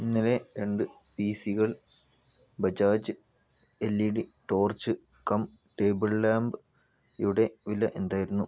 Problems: low volume